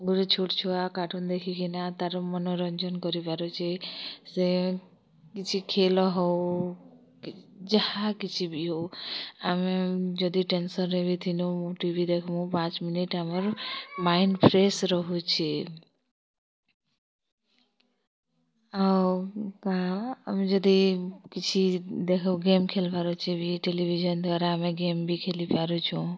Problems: none marked